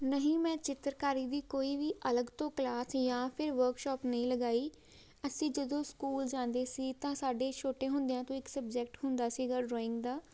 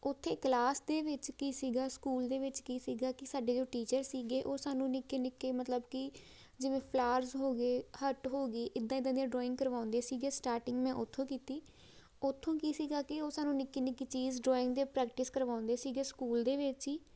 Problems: background sounds at intervals